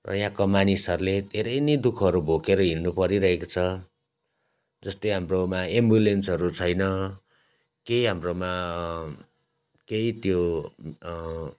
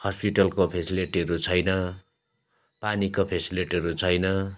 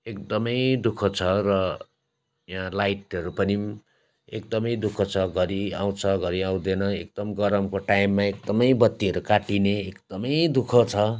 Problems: constant background noise